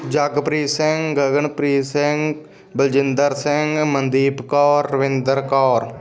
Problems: none marked